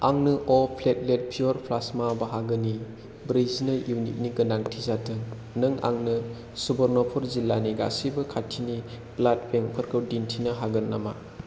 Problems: none marked